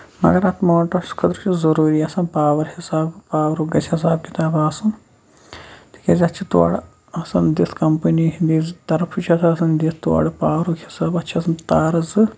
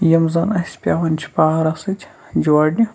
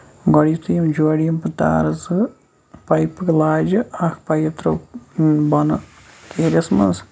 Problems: background sounds at intervals